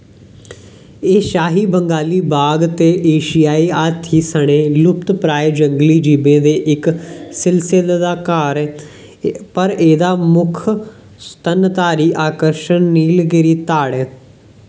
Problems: none marked